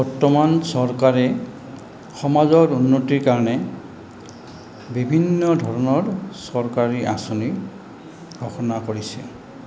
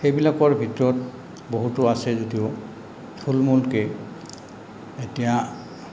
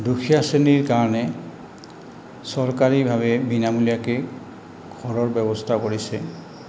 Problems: constant background noise, background conversations at intervals